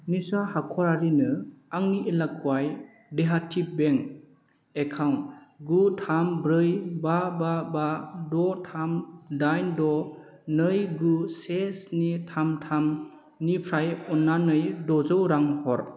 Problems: none marked